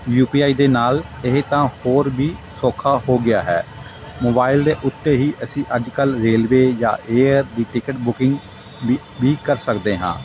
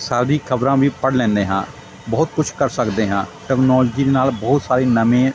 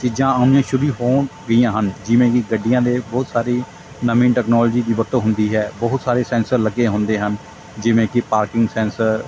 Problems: constant background noise, continuous background conversations